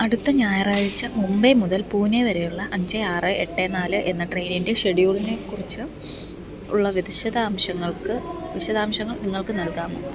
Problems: background sounds at intervals